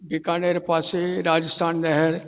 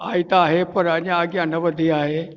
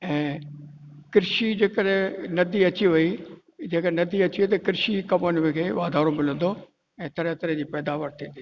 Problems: echo